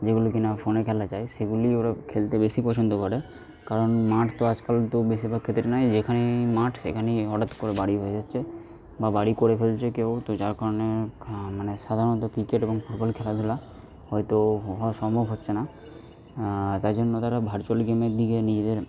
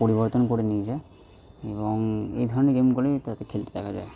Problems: background sounds at intervals